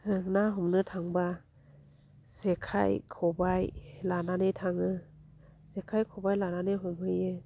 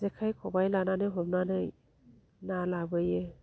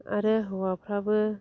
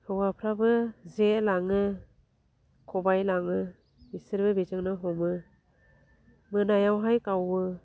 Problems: low volume